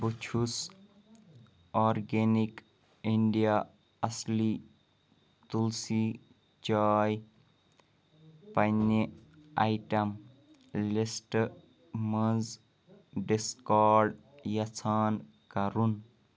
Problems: none marked